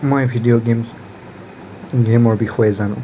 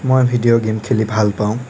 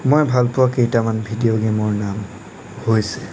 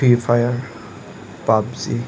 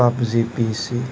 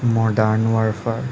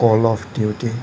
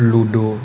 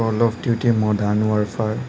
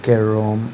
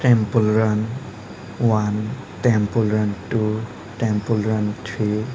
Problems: none marked